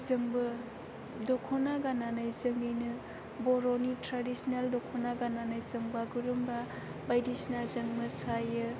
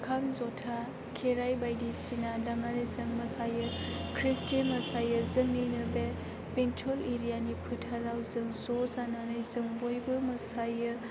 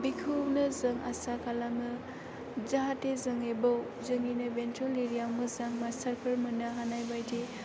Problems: constant background noise